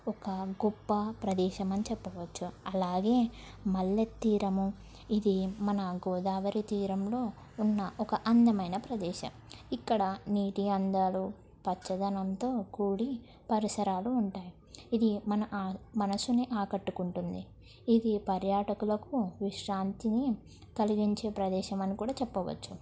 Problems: low volume